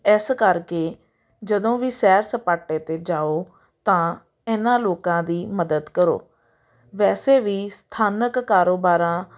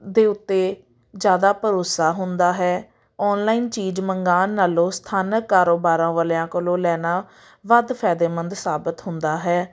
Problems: none marked